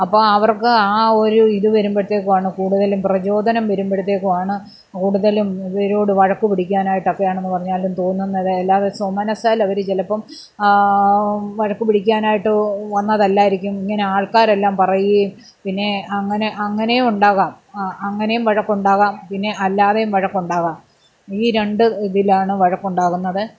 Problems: none marked